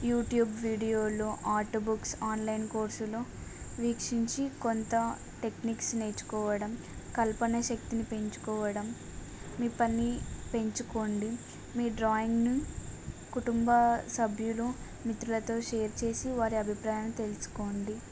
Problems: none marked